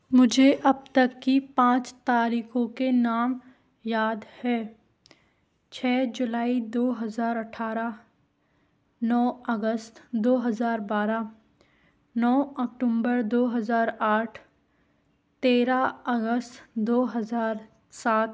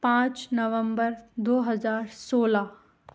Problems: none marked